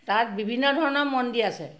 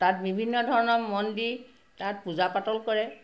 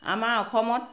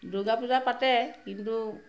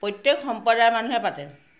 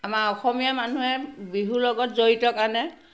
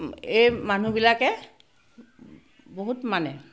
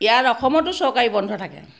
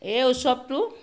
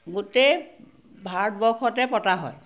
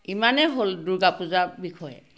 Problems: constant background noise, background conversations at intervals